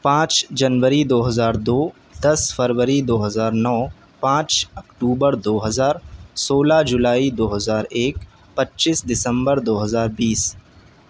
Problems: none marked